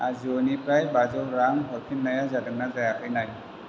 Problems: constant background noise